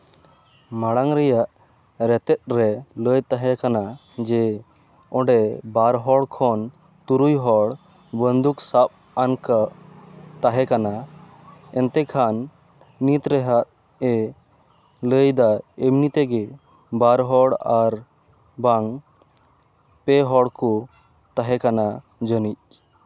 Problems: background sounds at intervals